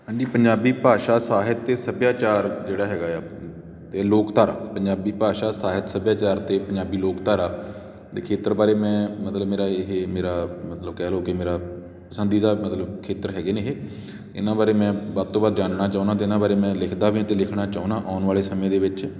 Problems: background sounds at intervals